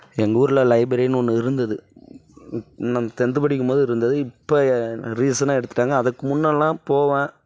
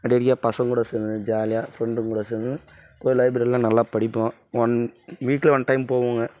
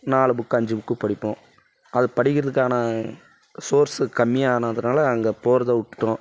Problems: none marked